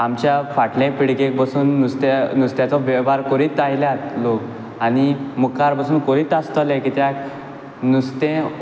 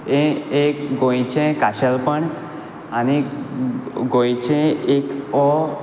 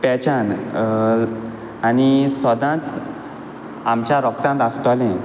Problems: background sounds at intervals